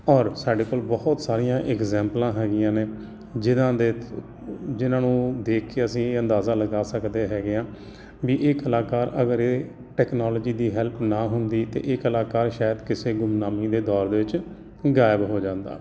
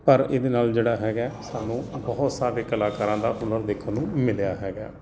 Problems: none marked